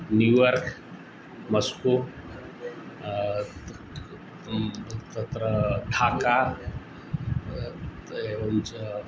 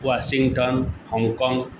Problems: constant background noise